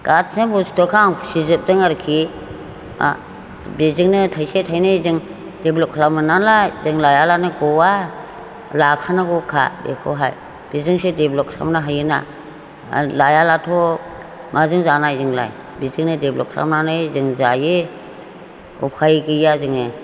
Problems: none marked